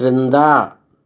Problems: none marked